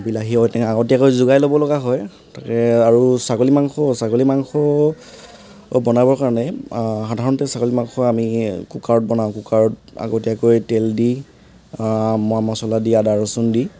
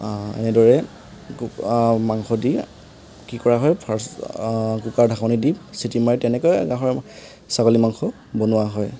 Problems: constant background noise